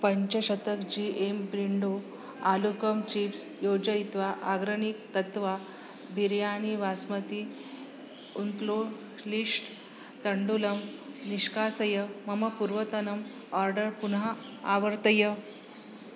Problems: constant background noise